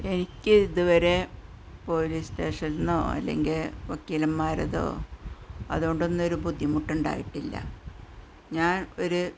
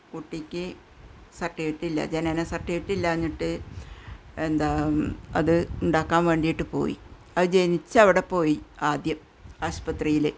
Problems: low volume